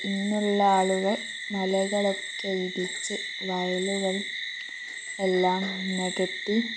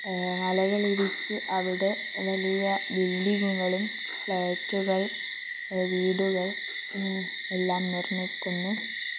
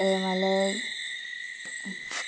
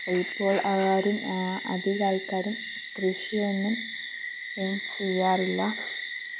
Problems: low volume